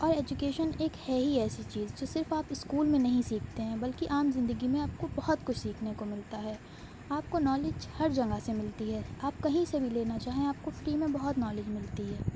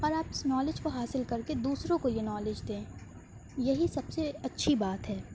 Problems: constant background noise